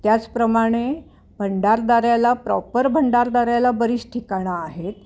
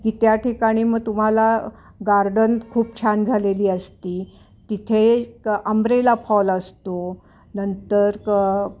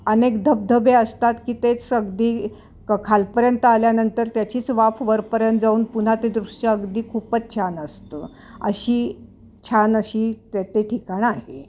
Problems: constant background noise